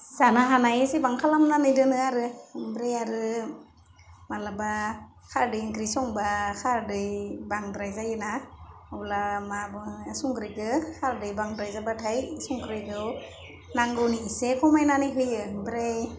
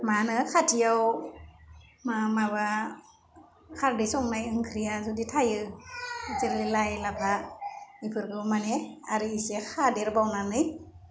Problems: constant background noise